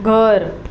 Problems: none marked